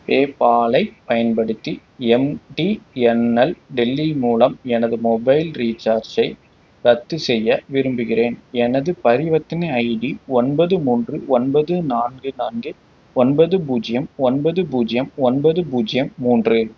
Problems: none marked